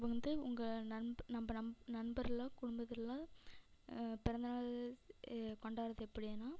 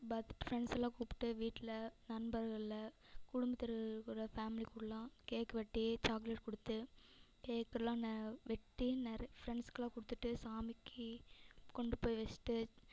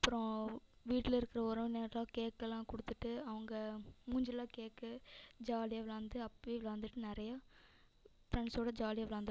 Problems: echo